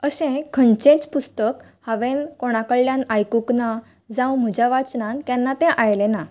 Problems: none marked